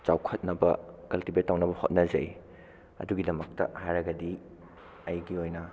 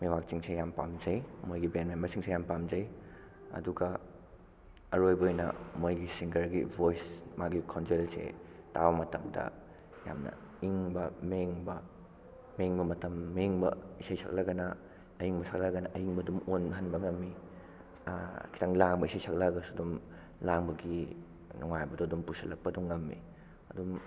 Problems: background sounds at intervals